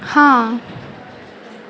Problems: none marked